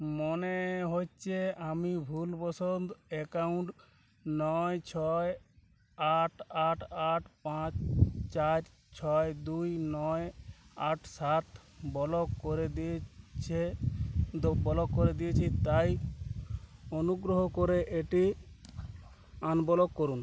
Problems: none marked